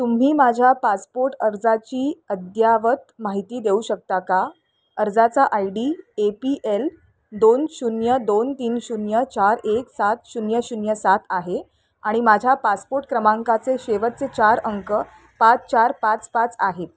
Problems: none marked